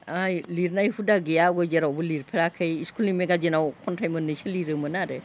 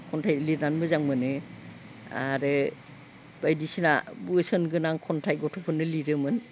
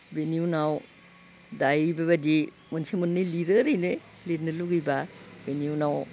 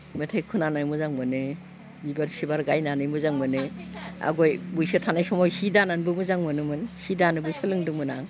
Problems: constant background noise